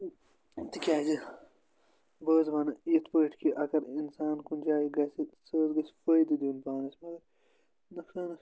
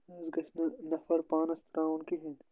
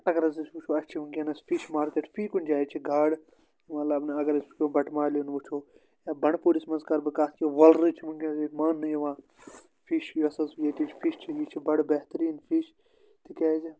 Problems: none marked